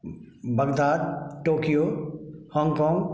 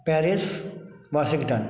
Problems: background sounds at intervals